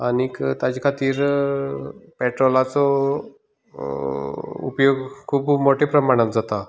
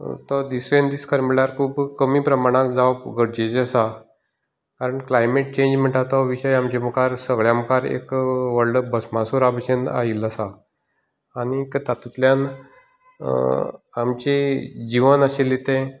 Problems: background sounds at intervals